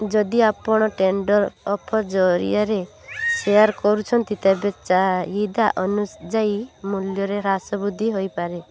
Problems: continuous background conversations